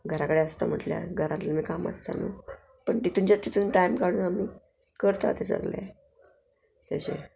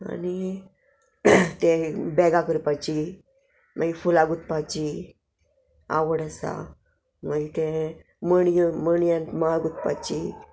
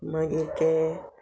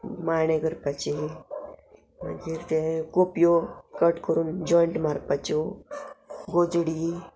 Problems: none marked